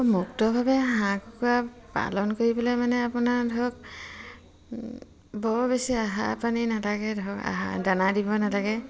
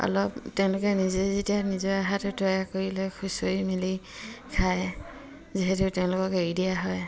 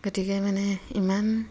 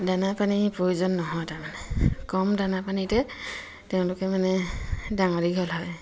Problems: continuous background conversations